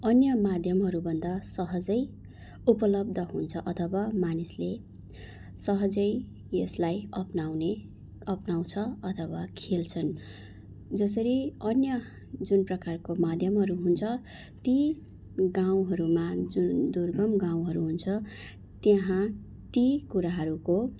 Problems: none marked